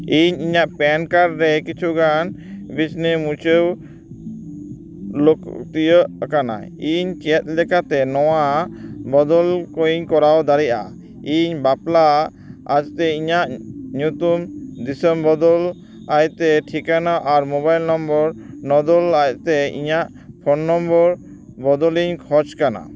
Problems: background sounds at intervals